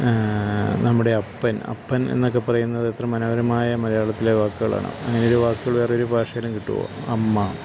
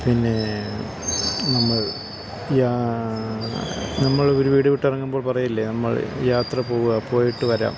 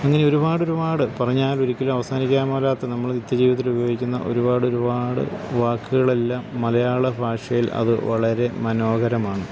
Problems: constant background noise